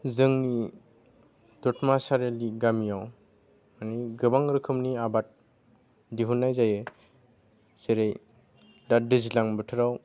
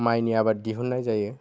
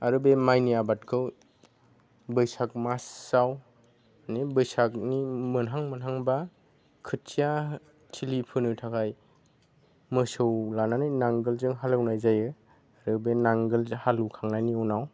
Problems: none marked